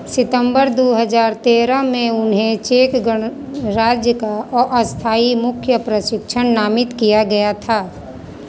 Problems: constant background noise, continuous background conversations